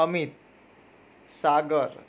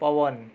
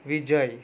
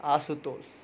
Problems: none marked